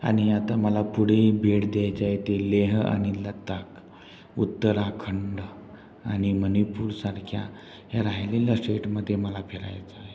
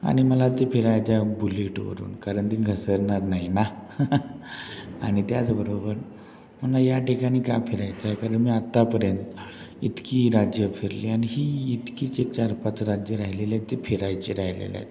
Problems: background sounds at intervals